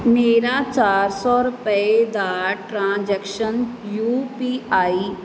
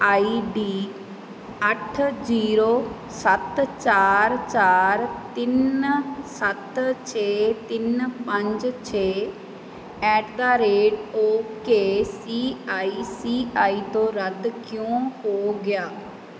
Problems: constant background noise